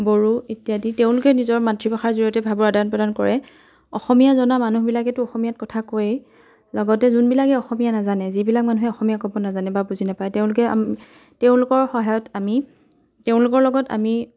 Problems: background sounds at intervals, continuous background conversations